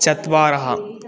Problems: none marked